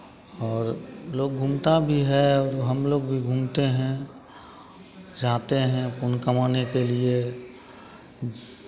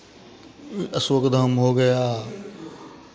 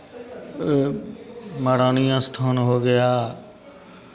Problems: none marked